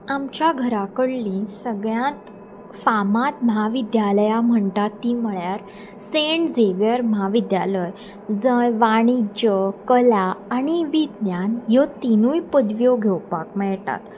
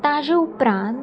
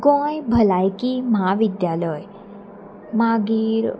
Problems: none marked